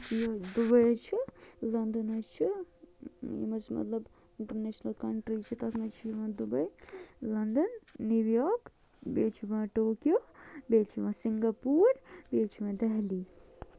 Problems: low volume